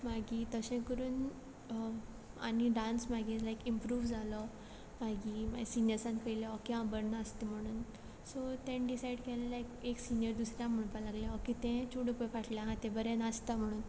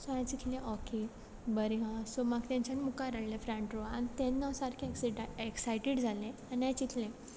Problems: background sounds at intervals